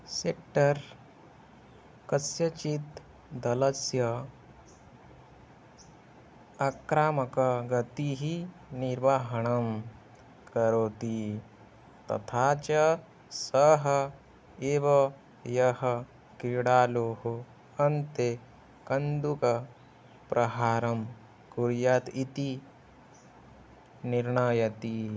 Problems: constant background noise